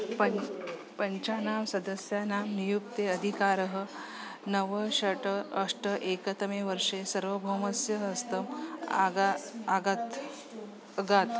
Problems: continuous background conversations